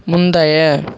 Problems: none marked